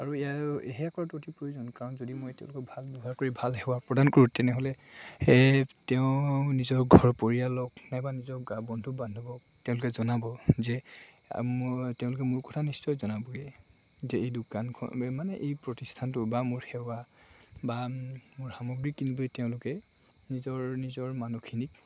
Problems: constant background noise, background conversations at intervals